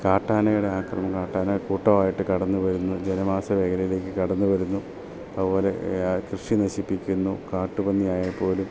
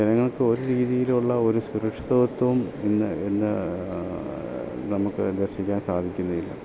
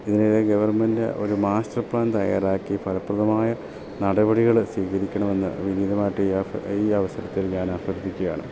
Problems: constant background noise, low volume